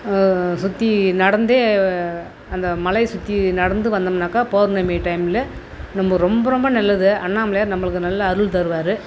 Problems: constant background noise